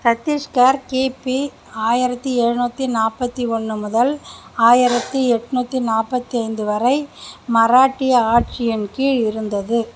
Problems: constant background noise